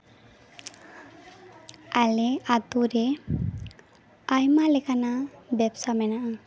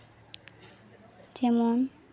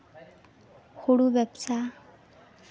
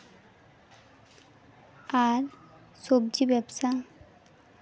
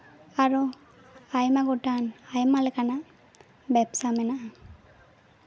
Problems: constant background noise, continuous background conversations